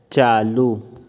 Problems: none marked